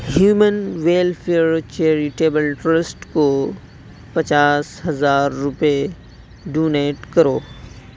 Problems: constant background noise